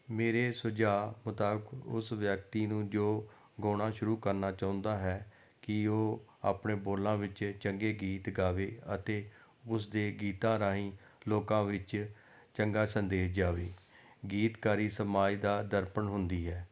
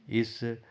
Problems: background conversations at intervals